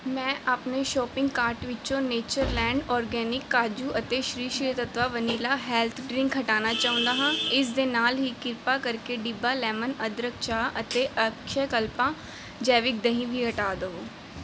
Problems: constant background noise